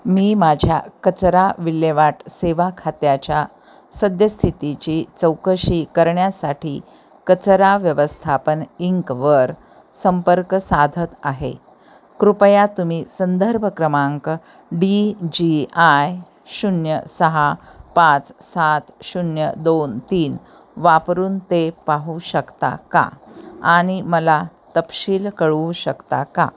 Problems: constant background noise